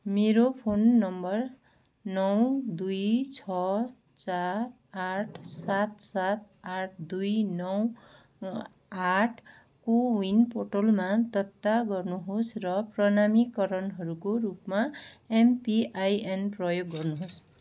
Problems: none marked